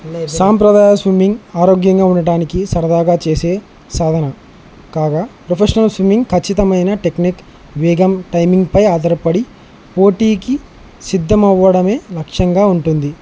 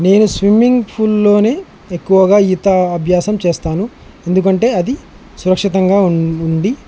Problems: constant background noise